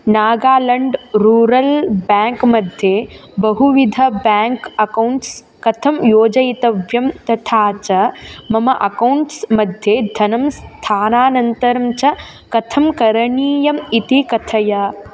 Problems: constant background noise